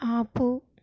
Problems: none marked